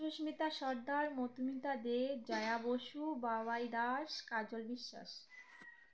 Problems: background sounds at intervals